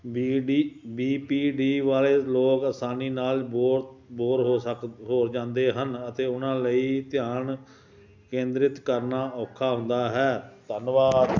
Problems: none marked